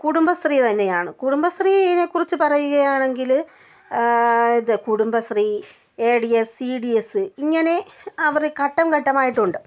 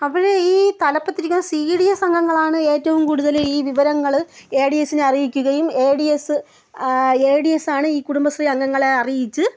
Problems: none marked